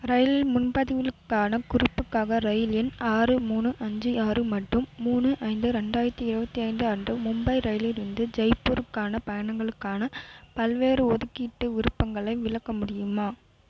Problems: constant background noise